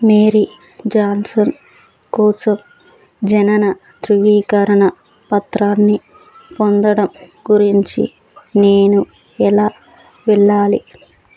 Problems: none marked